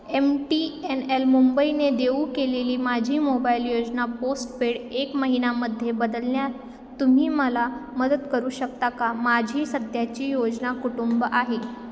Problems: constant background noise, continuous background conversations, echo